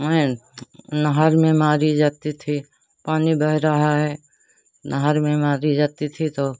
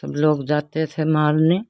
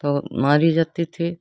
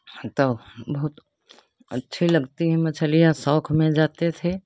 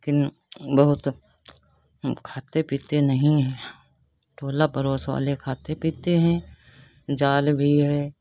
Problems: constant background noise